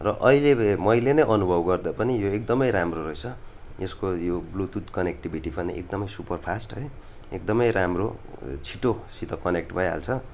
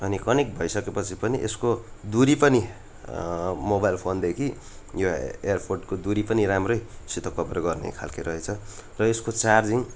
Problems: none marked